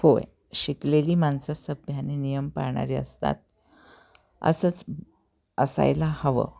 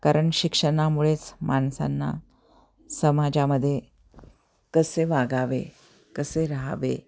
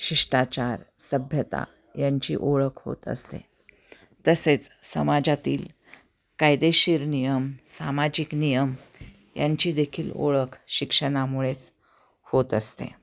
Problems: constant background noise, continuous background conversations